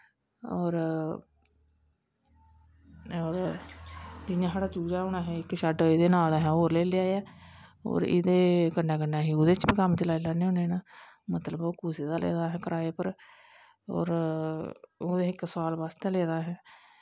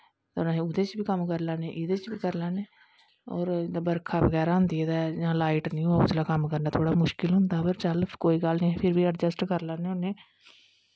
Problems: none marked